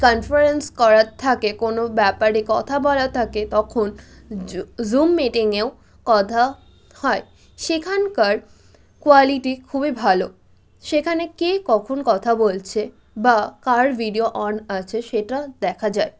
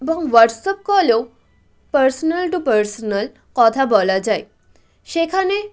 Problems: none marked